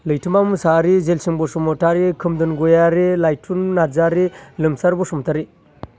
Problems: none marked